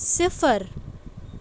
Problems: constant background noise